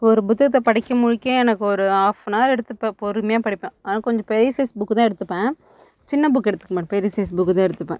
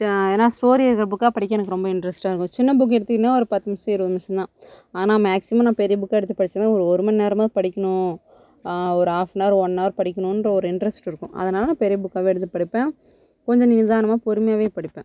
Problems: none marked